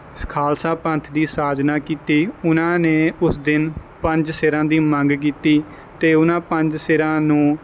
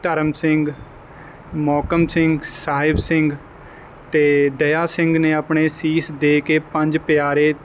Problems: none marked